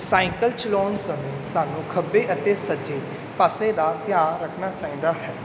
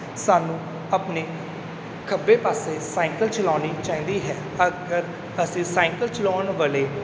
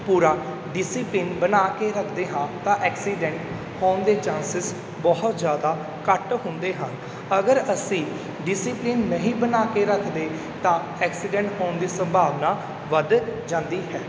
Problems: background sounds at intervals